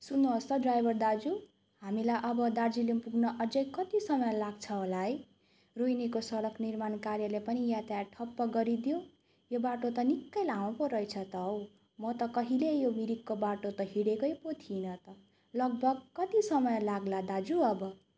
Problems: none marked